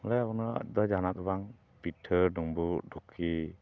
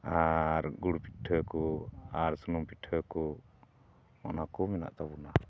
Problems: none marked